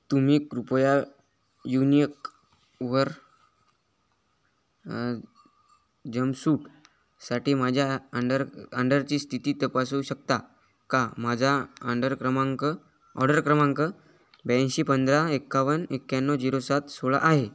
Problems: background sounds at intervals